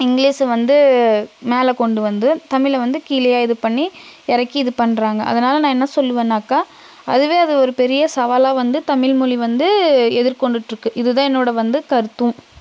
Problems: constant background noise